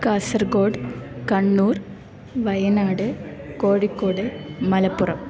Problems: none marked